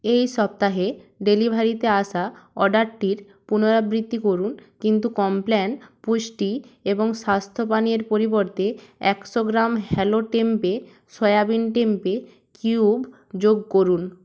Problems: none marked